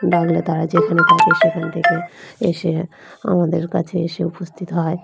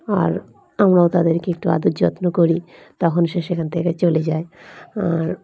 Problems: background sounds at intervals, background conversations at intervals